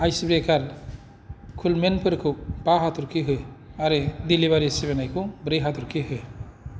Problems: none marked